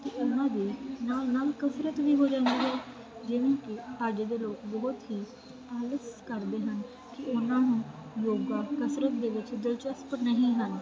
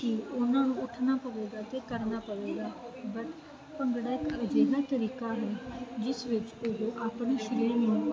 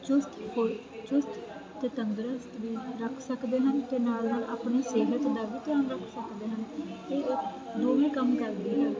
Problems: constant background noise